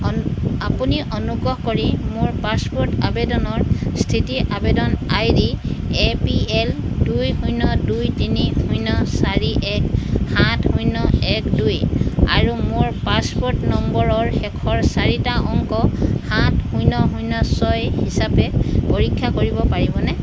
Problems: none marked